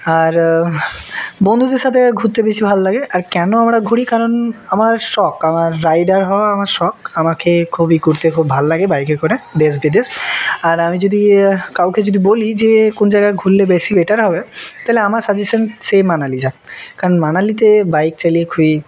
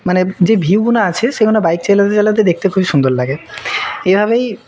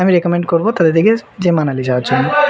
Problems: background conversations at intervals